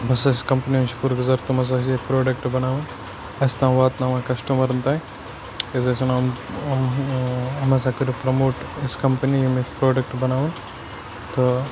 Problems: constant background noise, low volume